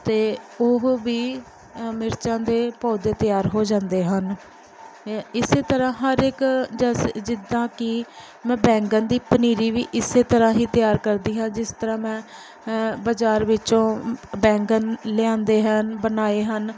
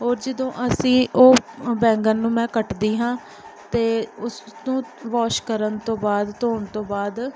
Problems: background sounds at intervals